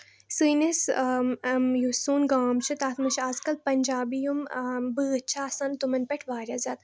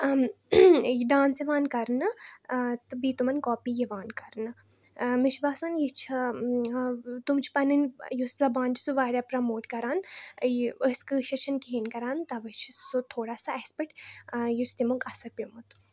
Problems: none marked